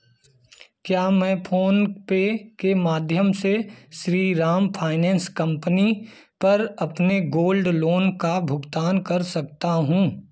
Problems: none marked